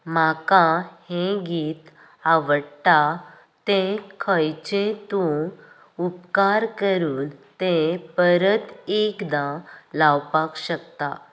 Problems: none marked